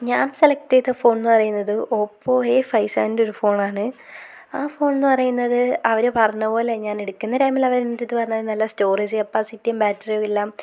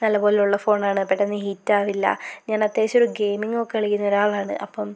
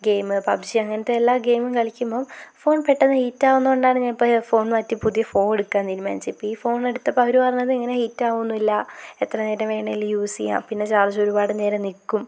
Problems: constant background noise